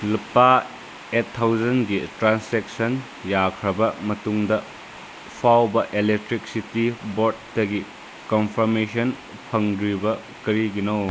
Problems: constant background noise